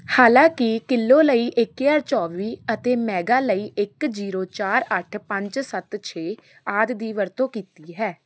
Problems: constant background noise